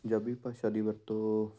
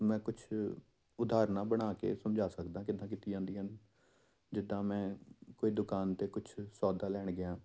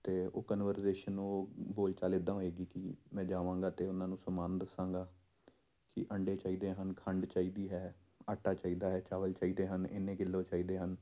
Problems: none marked